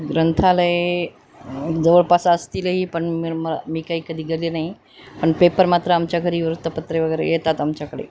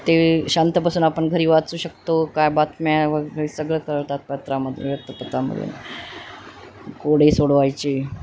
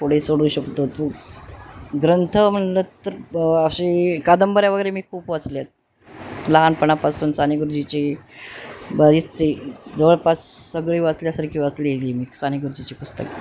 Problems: constant background noise